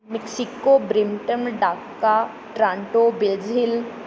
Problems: background sounds at intervals